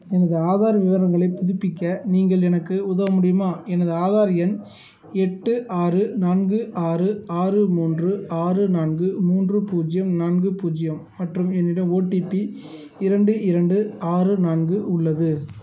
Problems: none marked